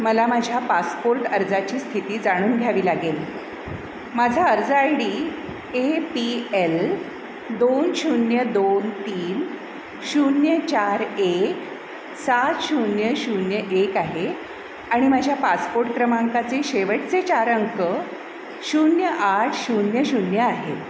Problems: constant background noise, echo